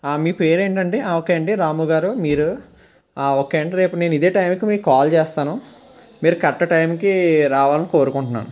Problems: constant background noise